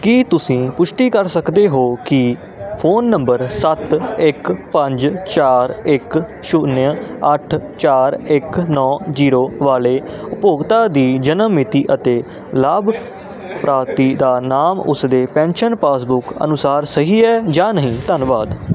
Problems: constant background noise